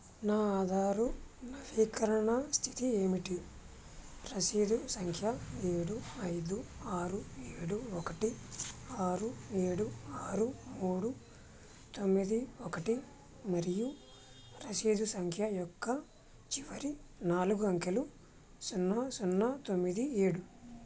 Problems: none marked